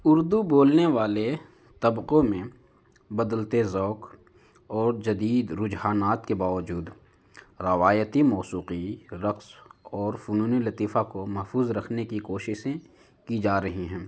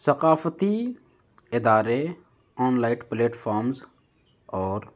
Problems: none marked